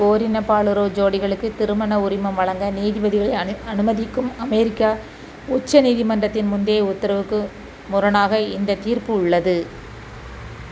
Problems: constant background noise